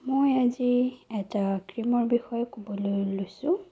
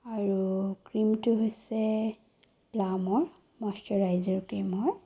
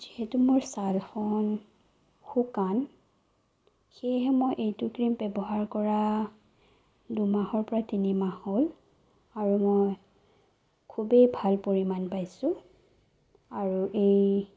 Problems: low volume